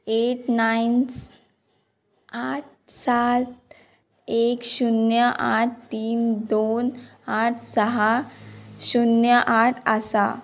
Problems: background sounds at intervals